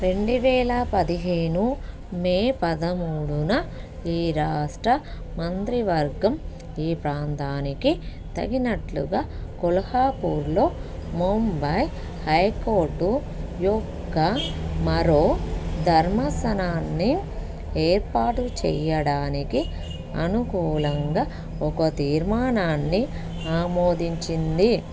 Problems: background sounds at intervals